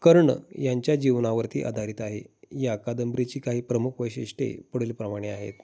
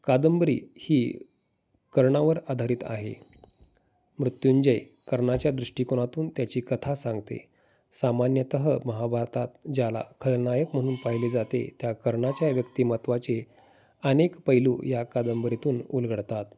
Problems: constant background noise, background conversations at intervals